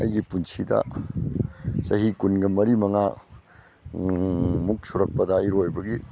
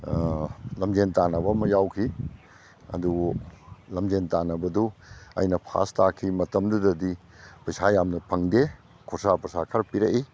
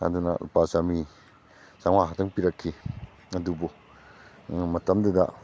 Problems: background sounds at intervals